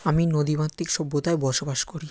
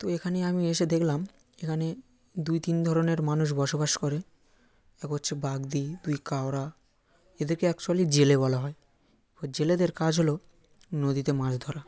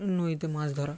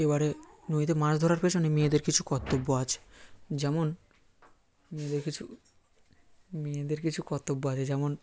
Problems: background conversations at intervals